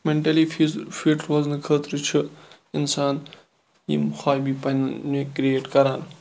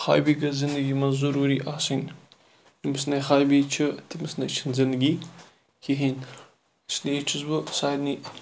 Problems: none marked